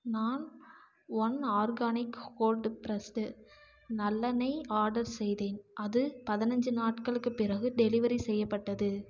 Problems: low volume